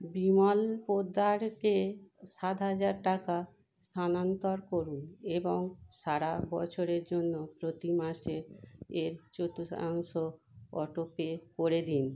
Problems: constant background noise